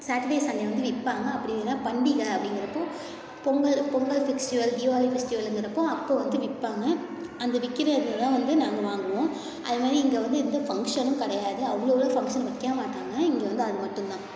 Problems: continuous background conversations, echo